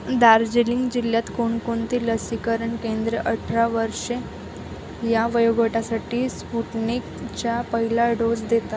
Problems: constant background noise